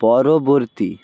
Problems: constant background noise